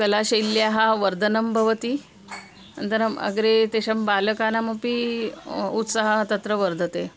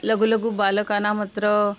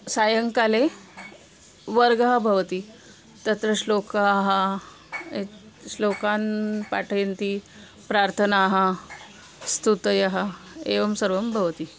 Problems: none marked